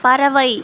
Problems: constant background noise